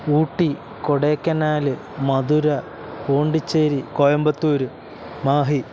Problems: constant background noise